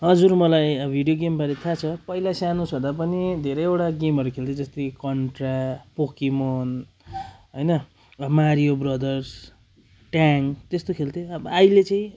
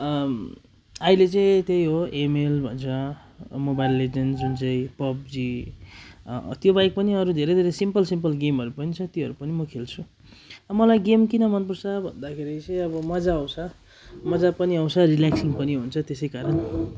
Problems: constant background noise